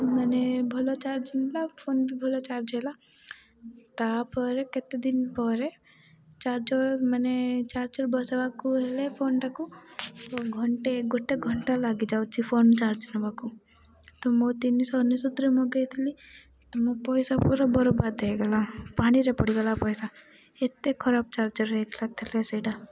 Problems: background sounds at intervals, low volume